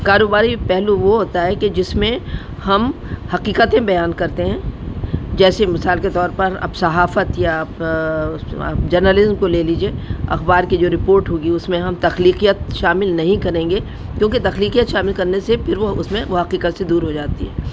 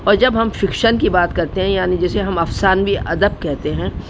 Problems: constant background noise